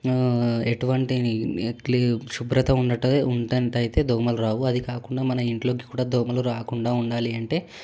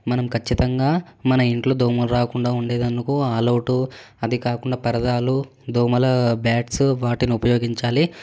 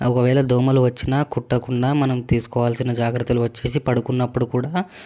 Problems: none marked